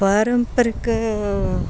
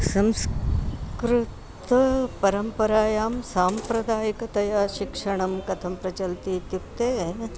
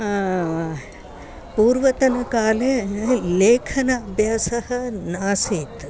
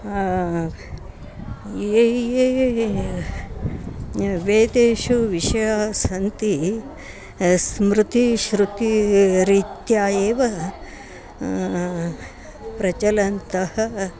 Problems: constant background noise, continuous background conversations